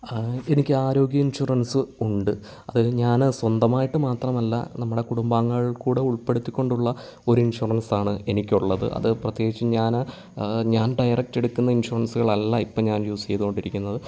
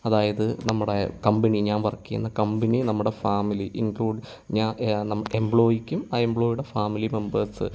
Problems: none marked